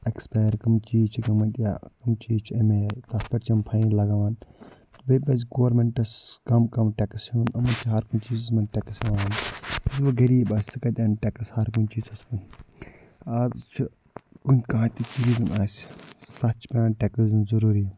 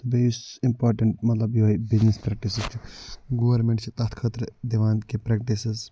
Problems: low volume